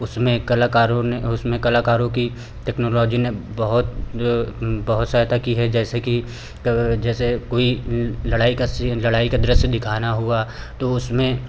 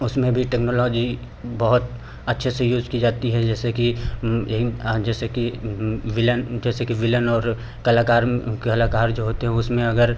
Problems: none marked